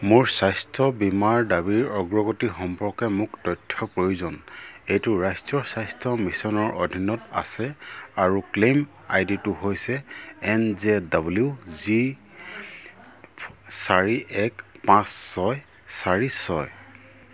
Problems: low volume